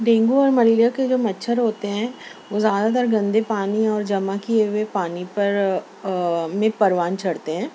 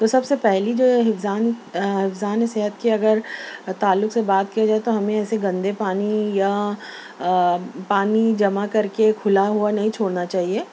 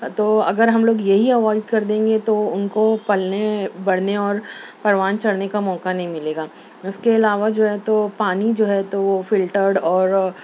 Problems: none marked